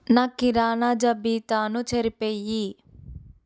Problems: none marked